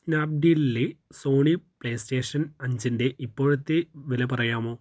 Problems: none marked